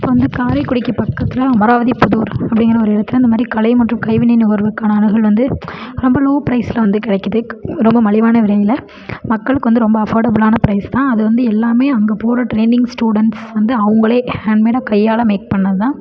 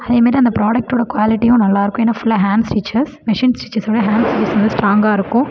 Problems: background conversations at intervals